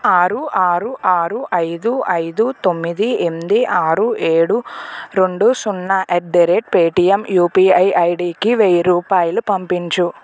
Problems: none marked